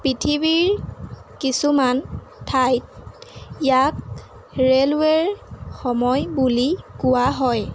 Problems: constant background noise